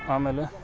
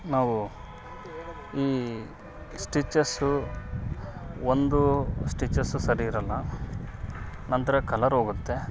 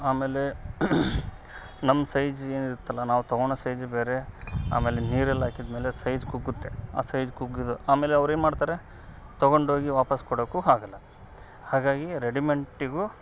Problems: background sounds at intervals